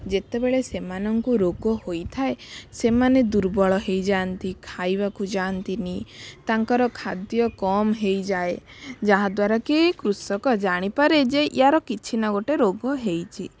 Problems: background sounds at intervals